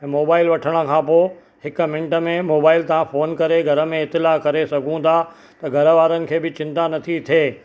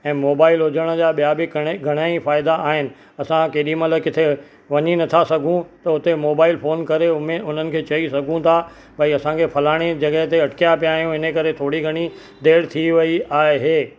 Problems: none marked